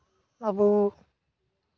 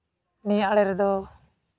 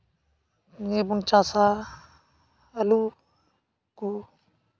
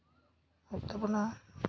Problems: constant background noise